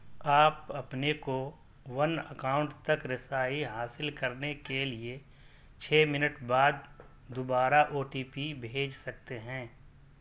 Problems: none marked